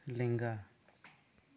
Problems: low volume